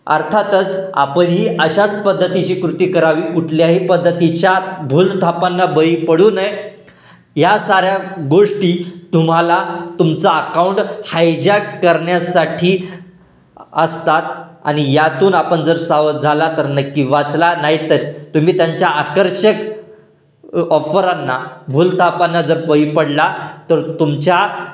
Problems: none marked